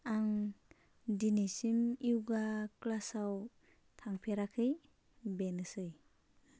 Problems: none marked